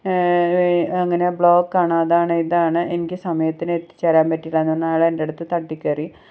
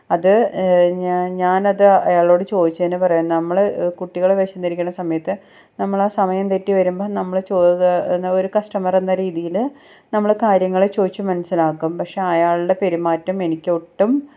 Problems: none marked